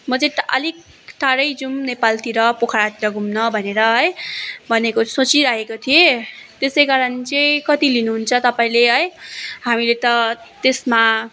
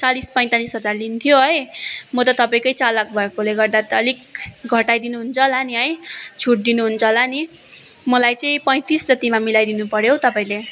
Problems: continuous background conversations